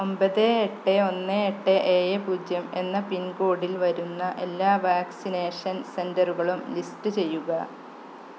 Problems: constant background noise